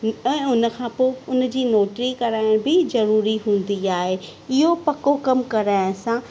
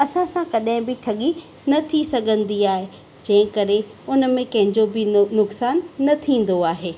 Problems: constant background noise